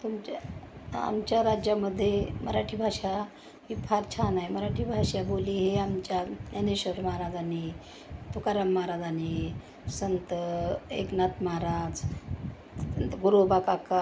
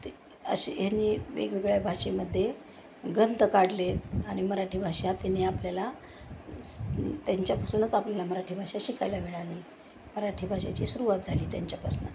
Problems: none marked